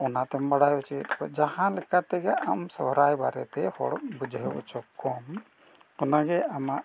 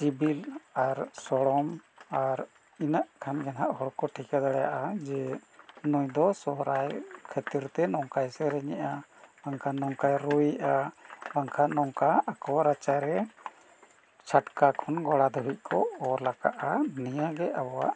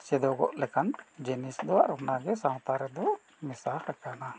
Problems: constant background noise